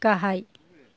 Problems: background conversations at intervals